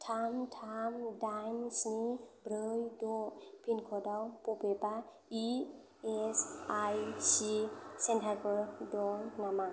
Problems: background sounds at intervals